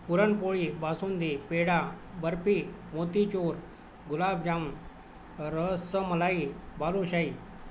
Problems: none marked